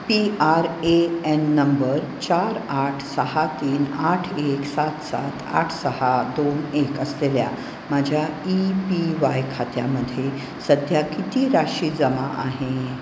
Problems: constant background noise